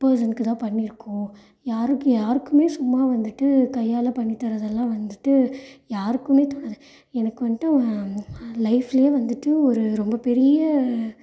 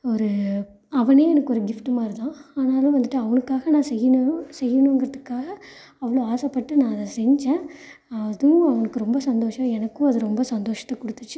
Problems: none marked